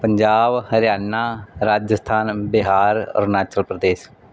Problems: none marked